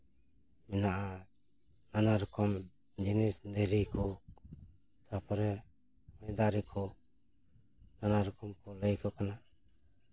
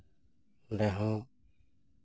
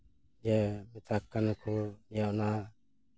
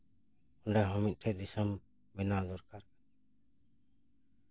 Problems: background sounds at intervals